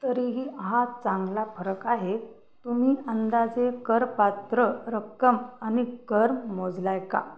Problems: constant background noise